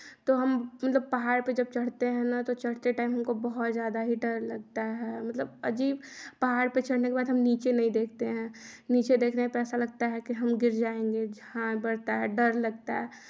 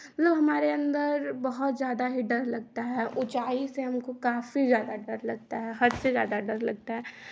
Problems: none marked